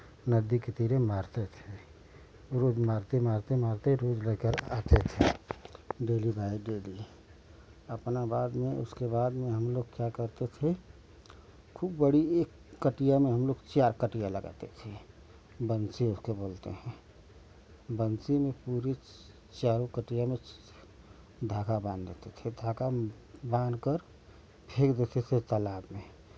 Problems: none marked